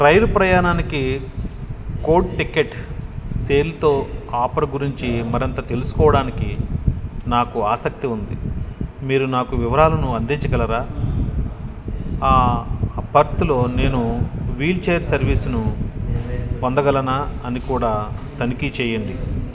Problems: background conversations at intervals